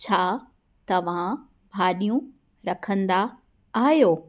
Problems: none marked